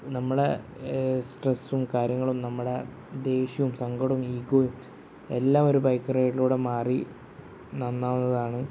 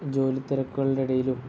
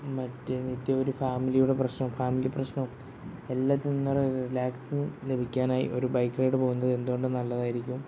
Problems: none marked